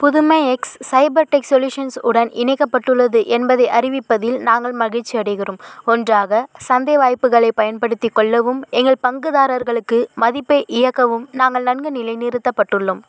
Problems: constant background noise